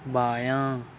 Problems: constant background noise